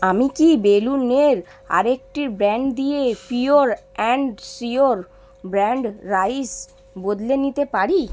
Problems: background sounds at intervals